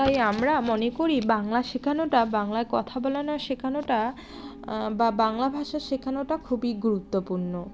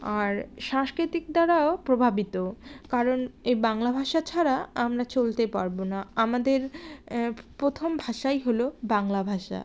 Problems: none marked